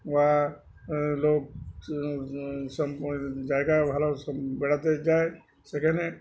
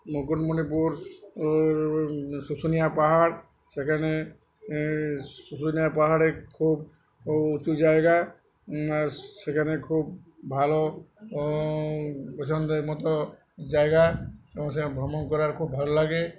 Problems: background conversations at intervals